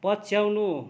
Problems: background conversations at intervals